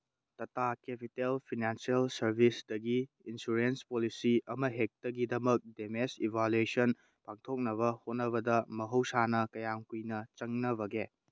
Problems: none marked